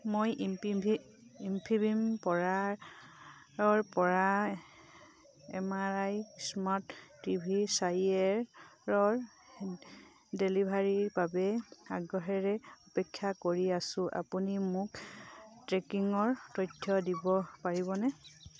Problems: none marked